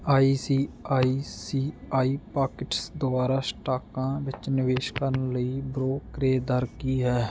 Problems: background sounds at intervals